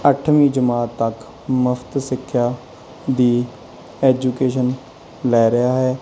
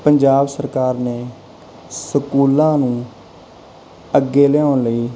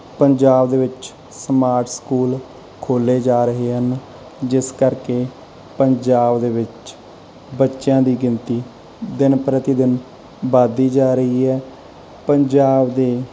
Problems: background sounds at intervals